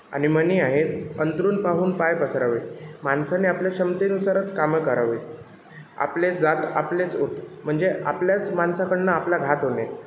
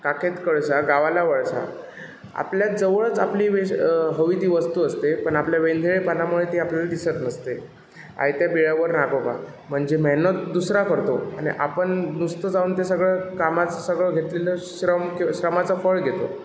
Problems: constant background noise, background conversations at intervals